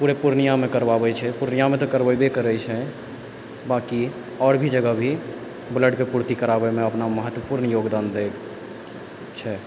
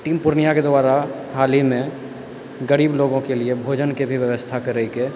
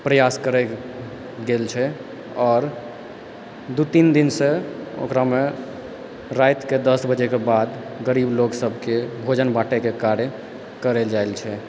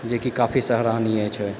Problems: constant background noise